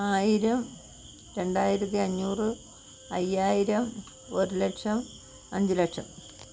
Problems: constant background noise